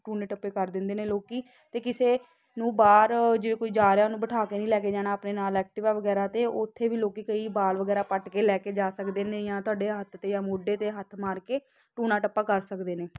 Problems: constant background noise